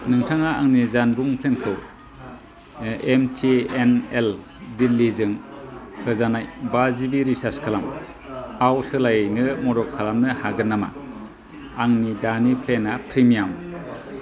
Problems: constant background noise